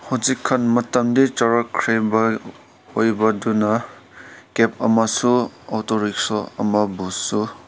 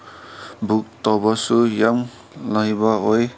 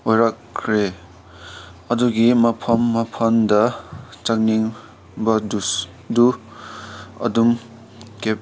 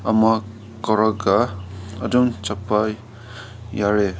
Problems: constant background noise